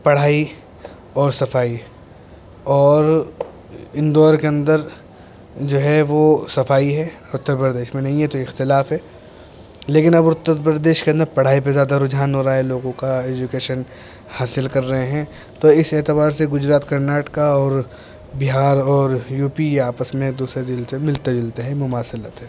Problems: constant background noise